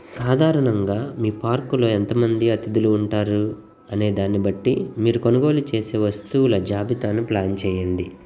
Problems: constant background noise